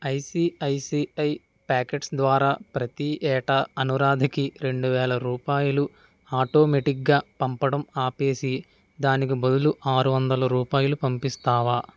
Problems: background sounds at intervals